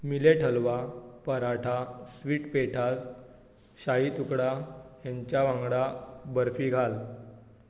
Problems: constant background noise